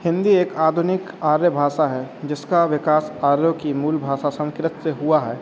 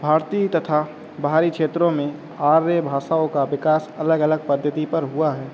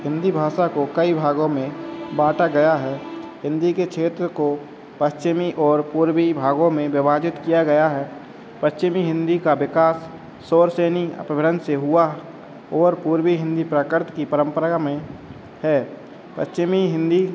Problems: constant background noise, background conversations at intervals